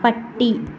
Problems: background sounds at intervals